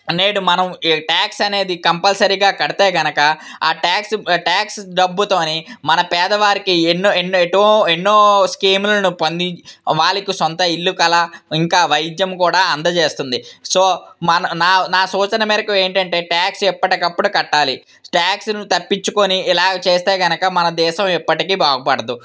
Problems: none marked